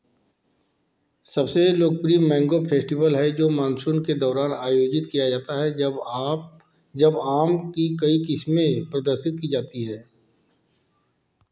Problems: constant background noise